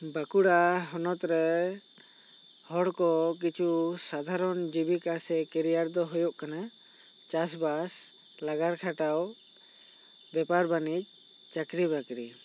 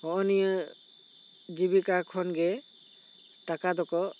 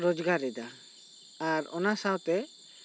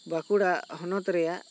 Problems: none marked